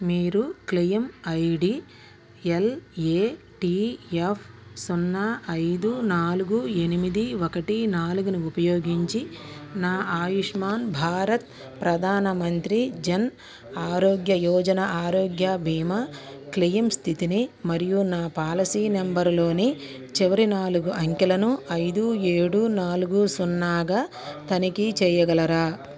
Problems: background conversations at intervals